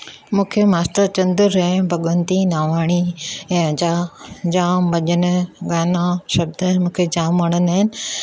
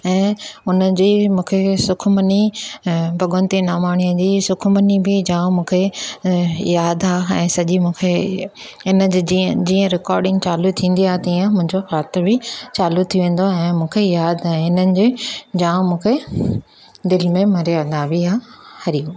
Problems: none marked